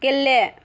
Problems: constant background noise